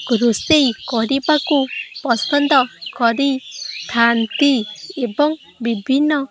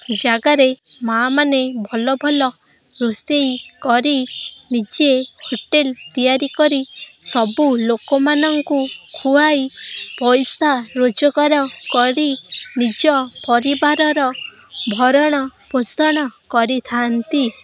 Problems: constant background noise